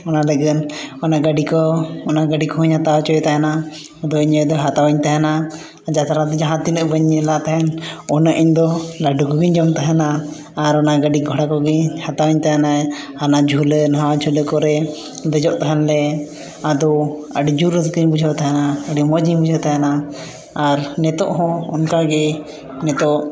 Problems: background sounds at intervals, echo